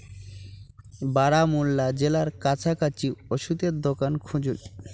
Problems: none marked